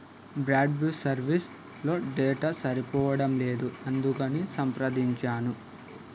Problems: constant background noise, background conversations at intervals